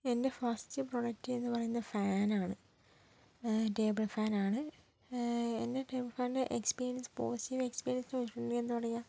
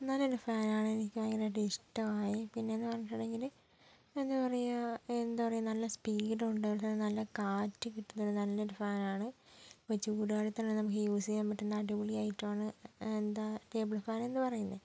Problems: low volume